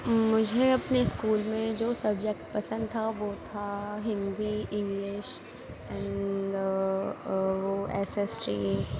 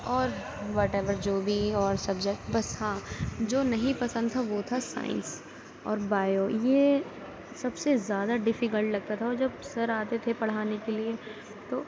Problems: constant background noise, background conversations at intervals